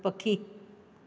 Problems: constant background noise, echo